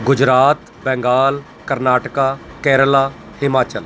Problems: none marked